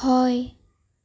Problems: none marked